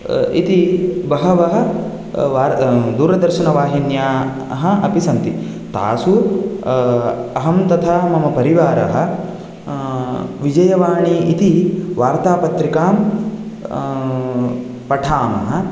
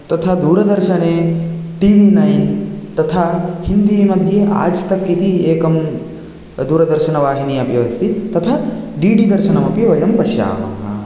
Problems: none marked